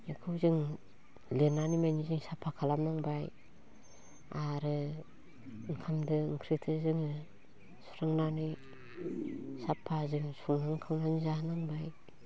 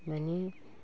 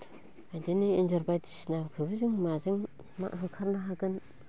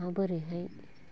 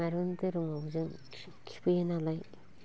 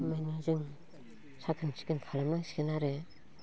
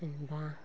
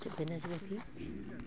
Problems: none marked